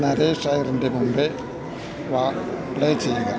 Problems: continuous background conversations, low volume